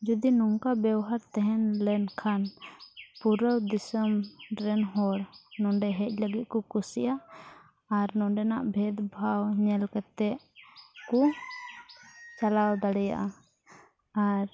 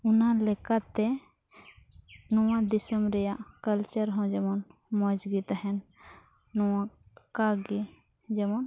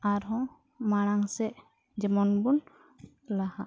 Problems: background sounds at intervals, low volume